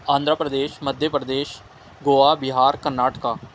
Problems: constant background noise